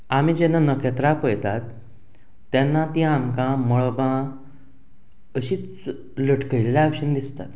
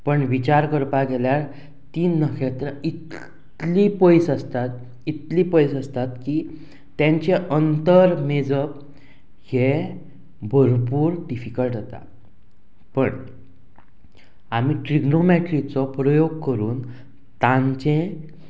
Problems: constant background noise